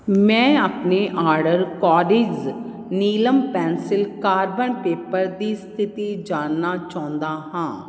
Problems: none marked